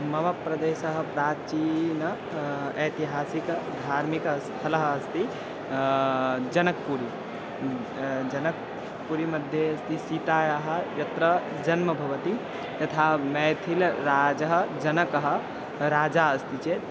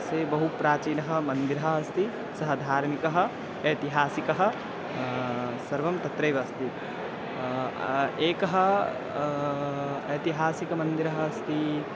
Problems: none marked